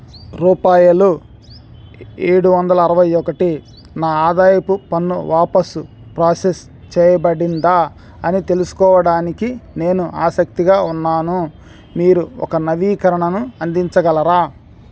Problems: background sounds at intervals